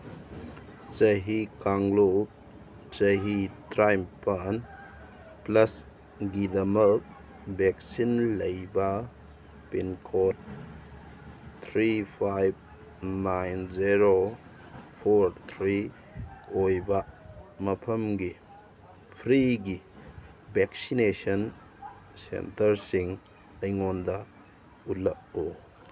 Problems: constant background noise